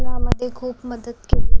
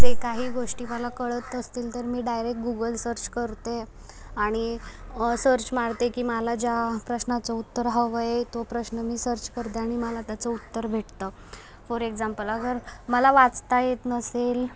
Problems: constant background noise, background conversations at intervals